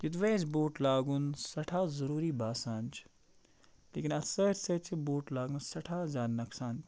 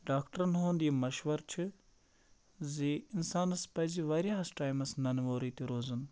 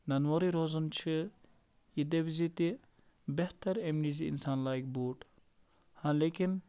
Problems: constant background noise